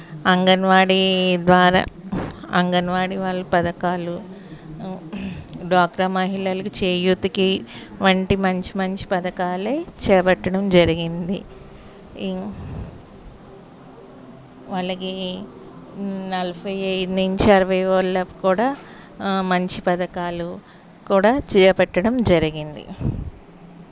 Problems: none marked